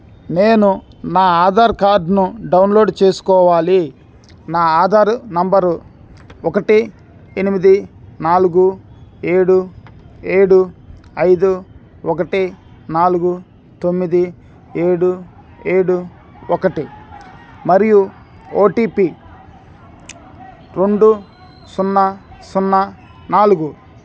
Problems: background sounds at intervals